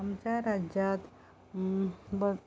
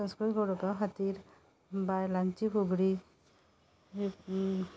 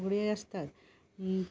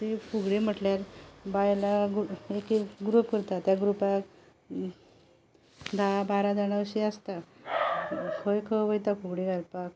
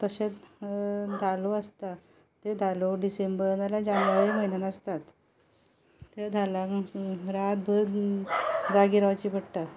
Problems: constant background noise